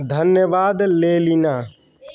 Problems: none marked